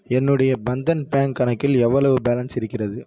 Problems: none marked